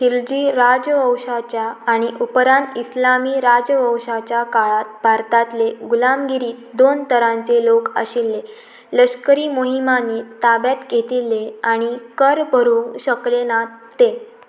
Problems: constant background noise